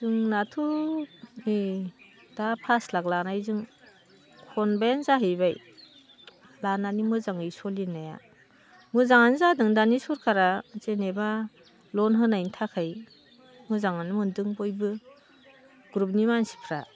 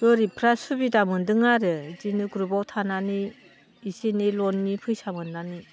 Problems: constant background noise